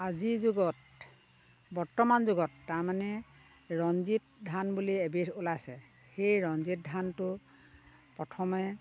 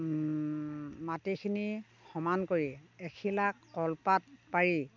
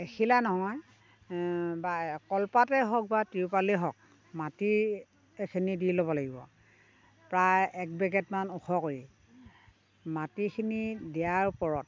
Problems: constant background noise